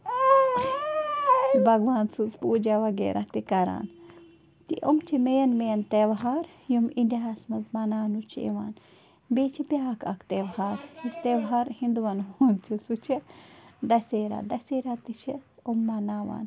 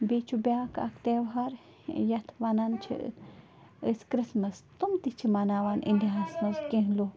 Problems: constant background noise